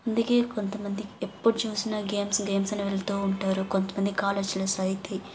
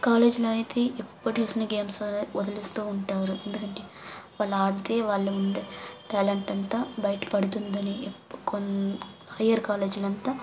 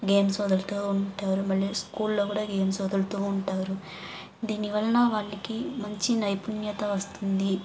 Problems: background sounds at intervals